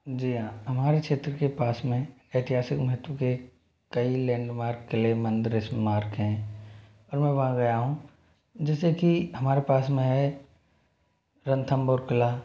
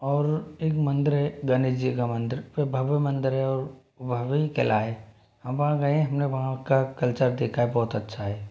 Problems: low volume